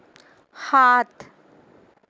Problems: none marked